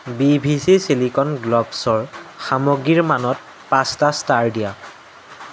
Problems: constant background noise